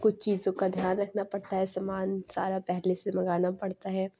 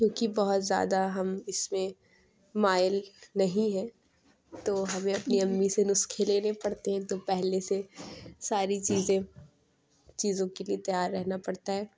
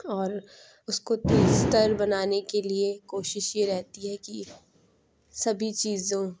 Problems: constant background noise